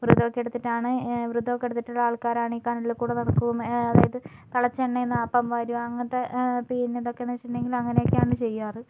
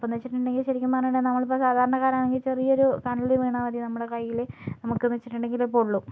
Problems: low volume